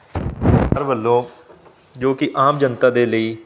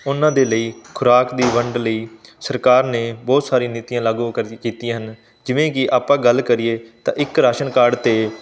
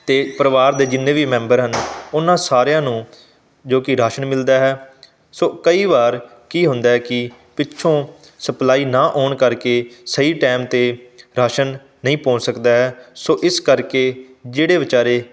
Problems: background sounds at intervals